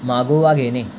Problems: constant background noise